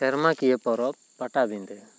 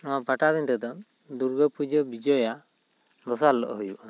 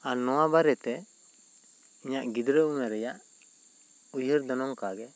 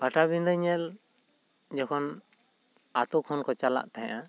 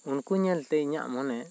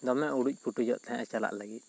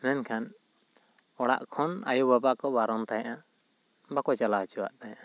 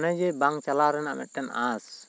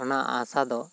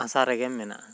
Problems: constant background noise